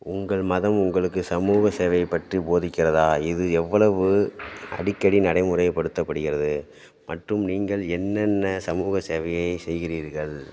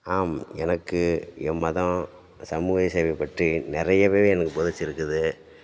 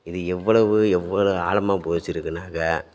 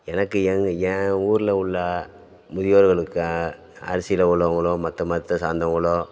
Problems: background sounds at intervals